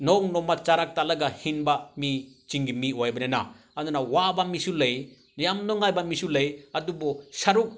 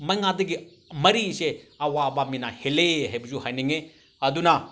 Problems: none marked